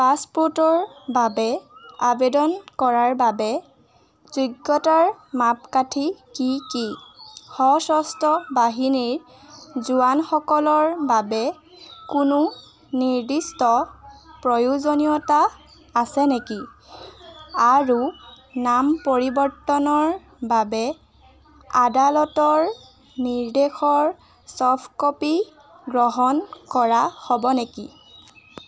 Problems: constant background noise